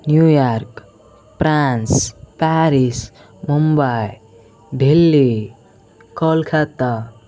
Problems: background conversations at intervals